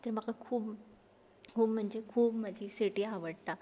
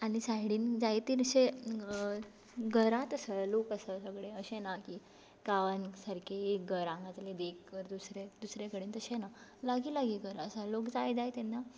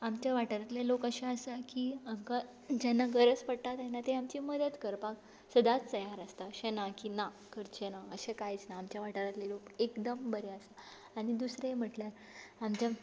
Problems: none marked